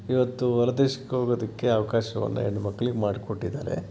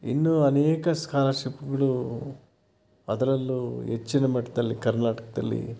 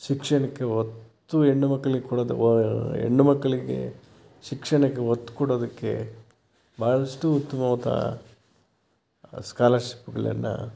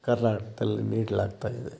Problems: constant background noise